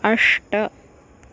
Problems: none marked